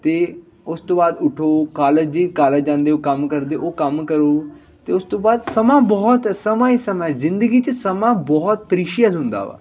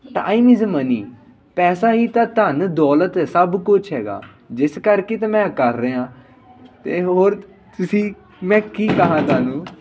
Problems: constant background noise, background conversations at intervals